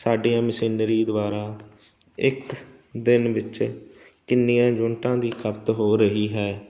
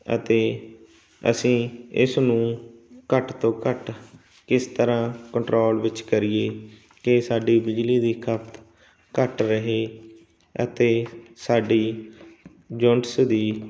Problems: none marked